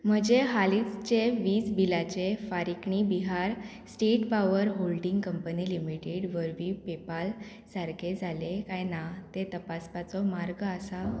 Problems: background sounds at intervals